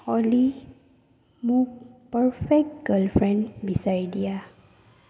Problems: low volume